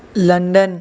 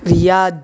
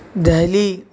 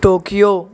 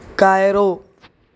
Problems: constant background noise